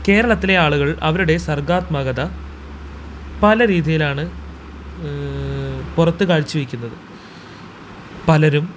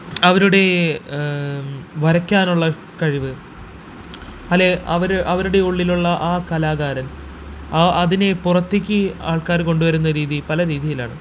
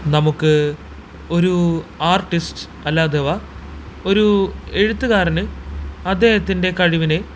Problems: constant background noise